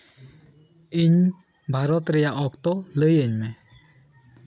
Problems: background sounds at intervals